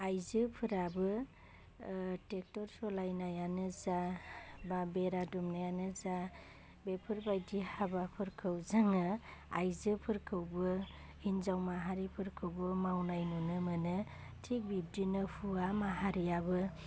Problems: constant background noise